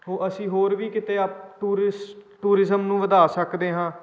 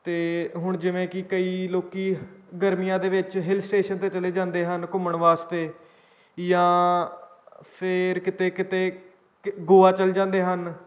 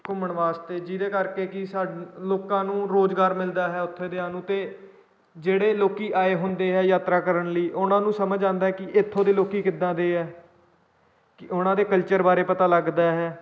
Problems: none marked